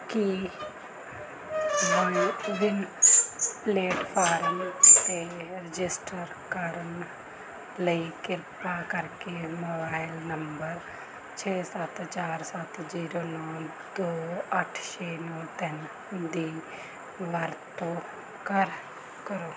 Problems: none marked